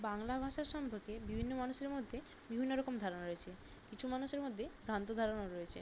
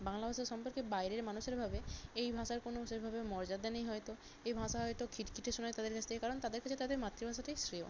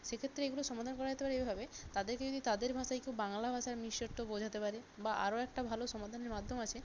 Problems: constant background noise